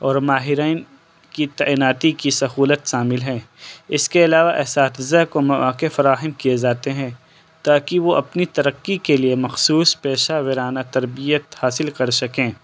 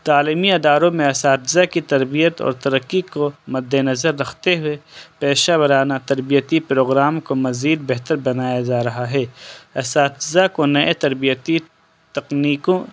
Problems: background sounds at intervals